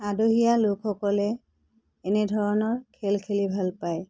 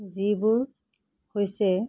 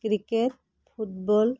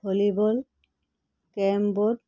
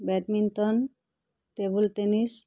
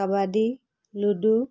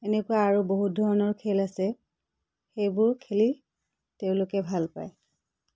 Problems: none marked